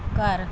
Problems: none marked